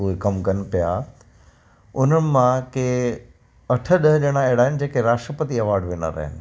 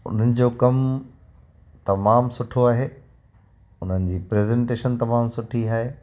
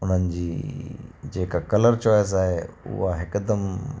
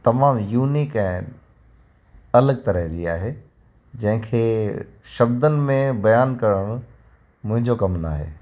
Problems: constant background noise